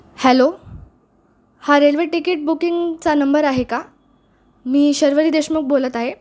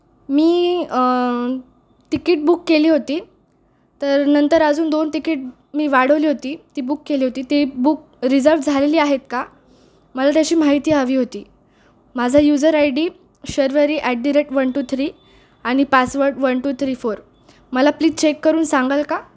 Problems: constant background noise